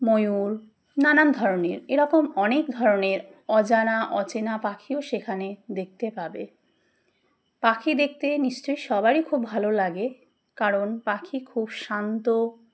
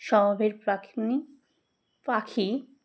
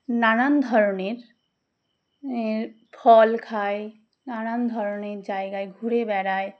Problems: background sounds at intervals